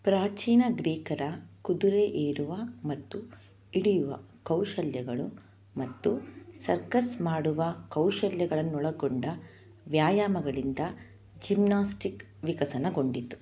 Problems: none marked